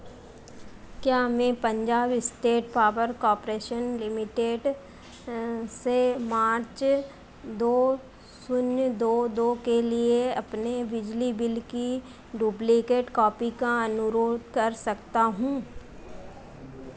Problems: constant background noise